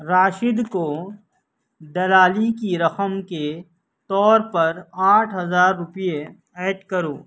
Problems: none marked